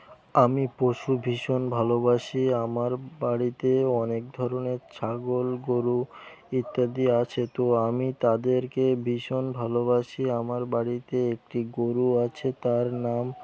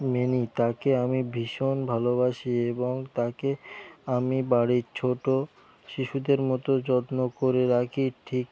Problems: background sounds at intervals